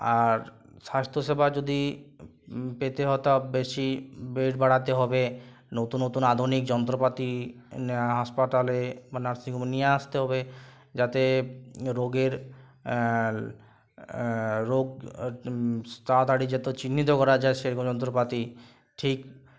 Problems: constant background noise